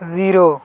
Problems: none marked